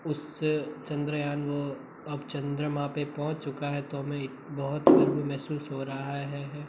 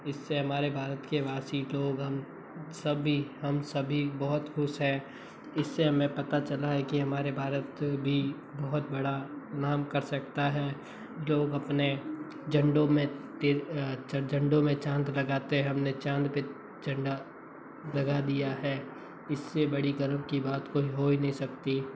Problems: constant background noise